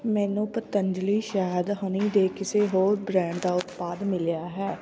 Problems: constant background noise